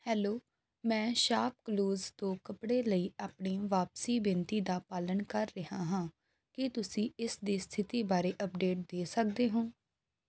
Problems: background sounds at intervals